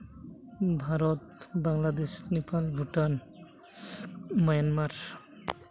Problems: constant background noise